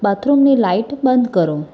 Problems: background conversations at intervals